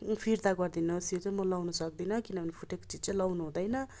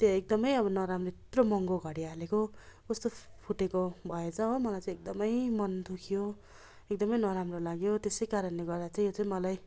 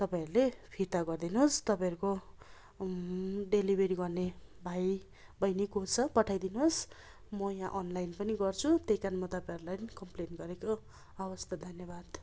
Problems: constant background noise